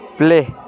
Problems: constant background noise